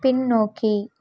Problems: none marked